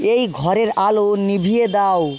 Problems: constant background noise